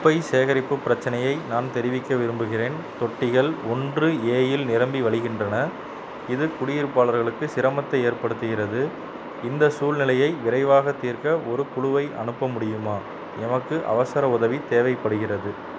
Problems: none marked